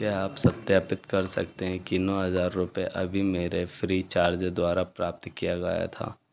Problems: background sounds at intervals